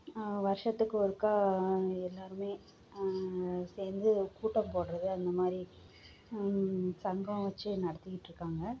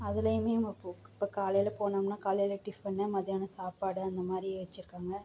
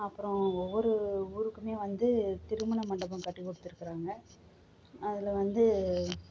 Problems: low volume